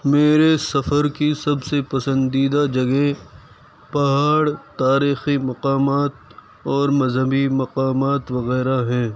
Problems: constant background noise